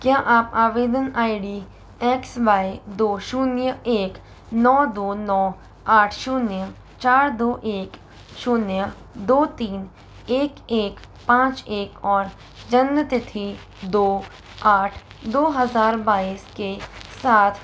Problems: background sounds at intervals